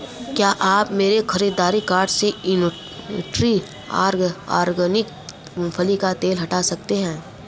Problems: constant background noise